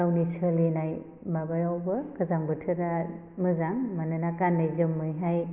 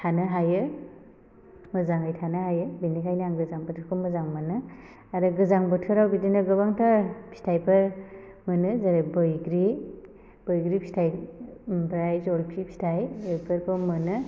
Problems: none marked